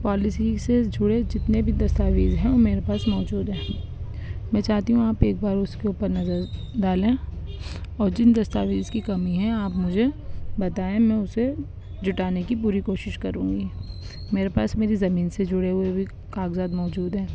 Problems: constant background noise